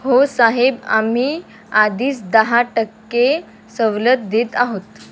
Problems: constant background noise